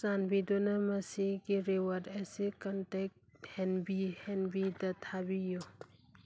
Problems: none marked